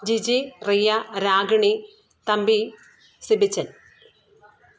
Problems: none marked